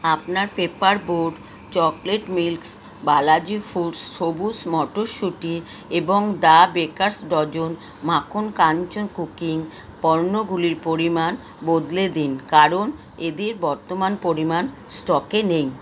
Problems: constant background noise